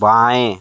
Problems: constant background noise